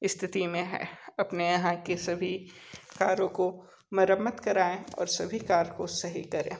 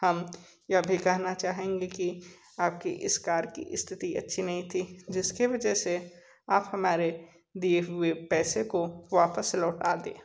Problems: background sounds at intervals